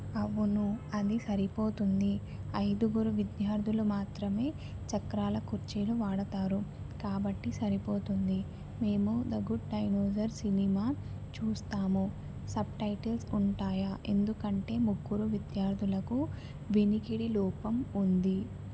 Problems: constant background noise, low volume